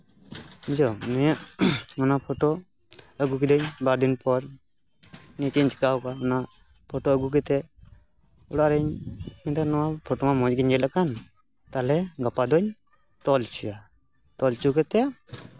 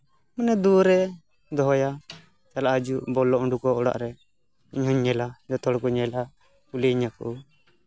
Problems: background sounds at intervals